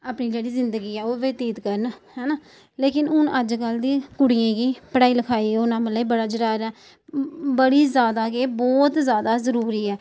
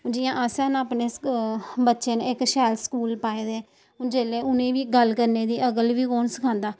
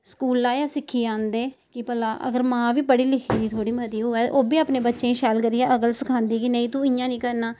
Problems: none marked